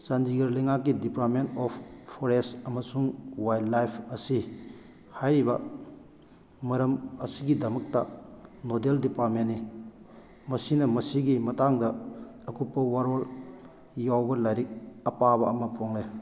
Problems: none marked